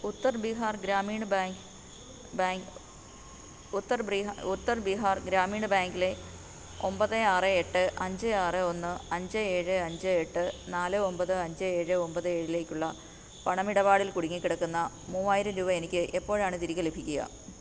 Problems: constant background noise, low volume